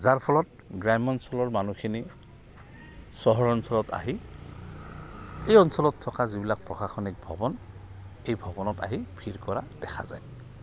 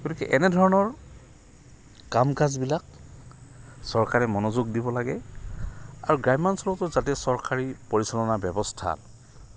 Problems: none marked